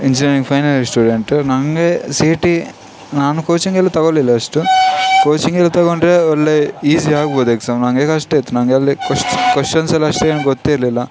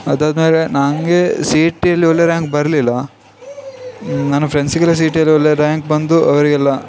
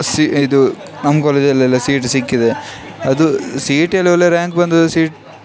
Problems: background sounds at intervals